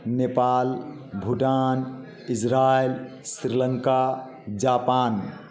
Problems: constant background noise, background conversations at intervals